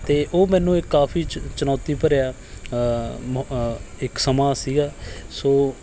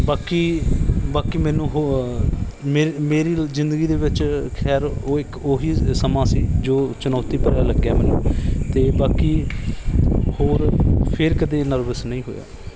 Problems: none marked